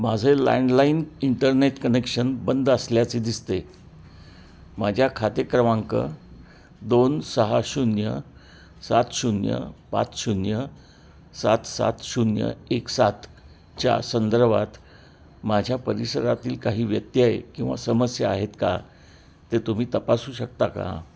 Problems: background sounds at intervals